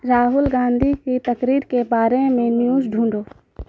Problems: constant background noise